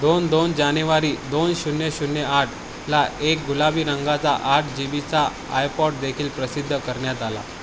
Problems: constant background noise